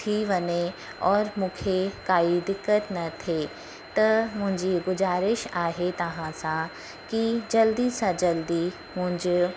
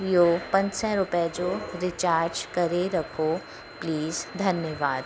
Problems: constant background noise